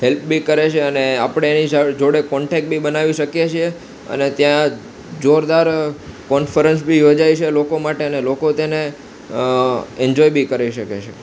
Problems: none marked